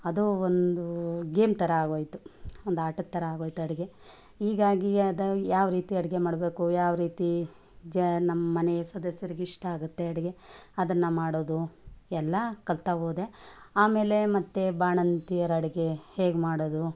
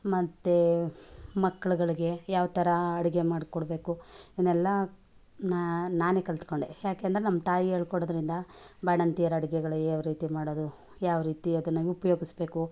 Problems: background conversations at intervals